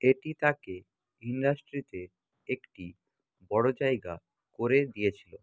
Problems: constant background noise